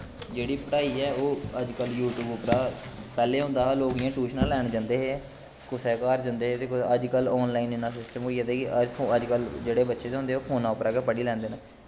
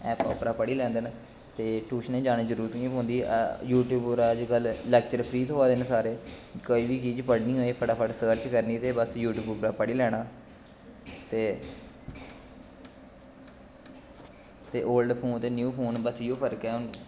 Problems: none marked